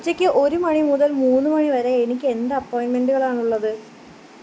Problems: constant background noise